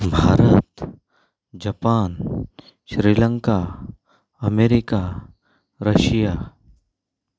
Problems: background sounds at intervals